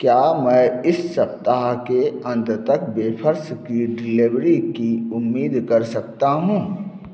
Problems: none marked